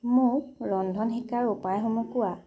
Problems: low volume